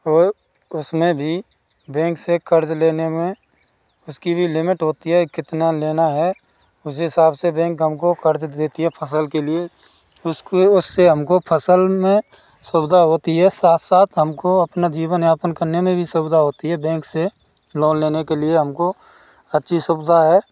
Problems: constant background noise